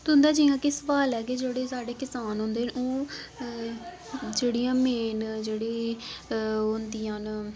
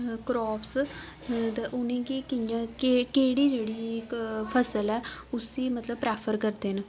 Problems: constant background noise